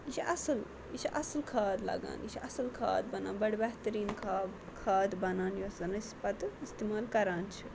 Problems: constant background noise, low volume